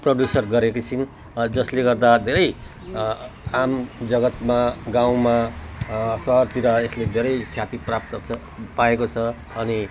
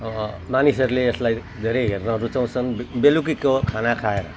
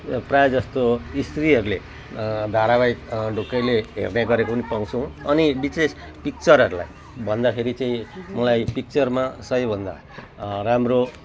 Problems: none marked